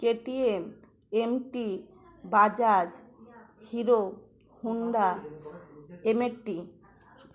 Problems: none marked